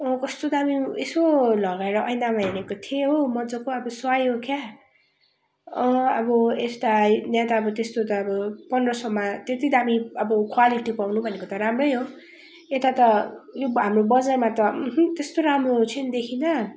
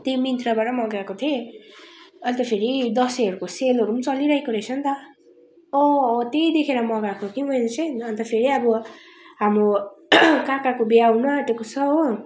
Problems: constant background noise